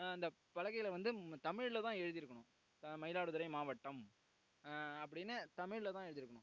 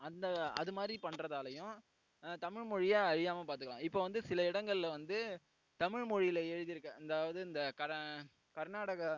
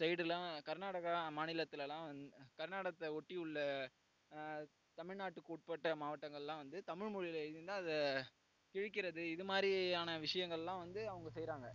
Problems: low volume